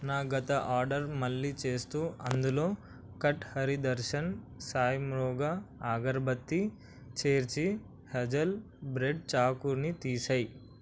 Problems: none marked